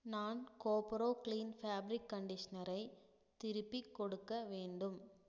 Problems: low volume